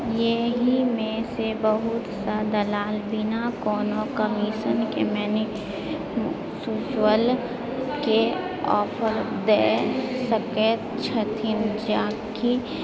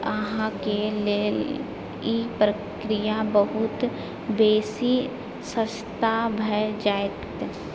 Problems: background sounds at intervals, background conversations at intervals